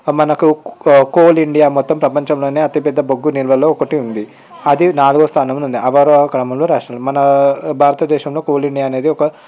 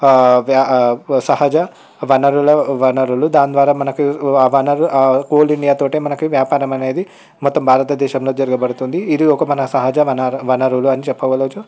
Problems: background sounds at intervals, background conversations at intervals